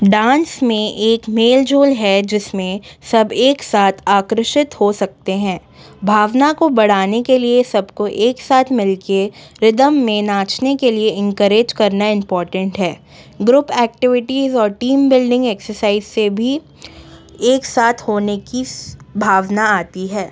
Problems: background sounds at intervals